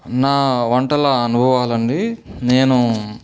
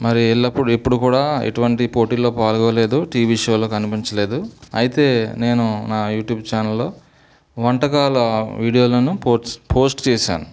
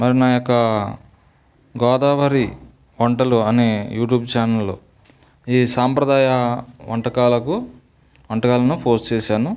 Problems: background sounds at intervals